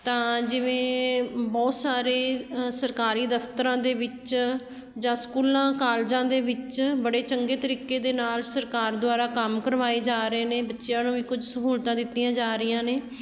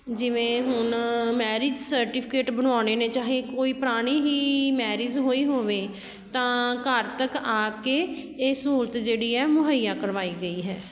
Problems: none marked